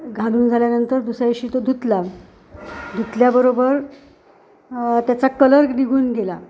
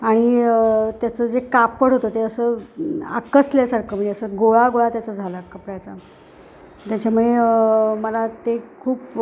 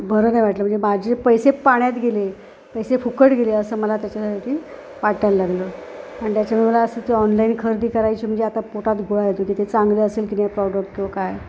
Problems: constant background noise